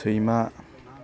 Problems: none marked